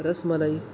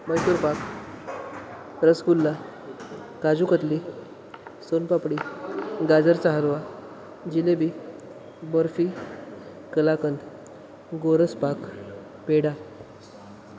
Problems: constant background noise